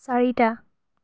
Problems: none marked